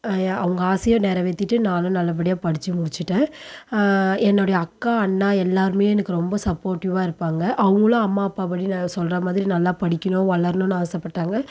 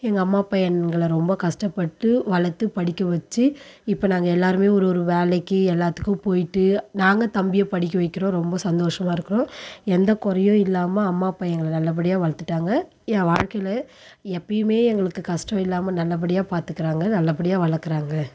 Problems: none marked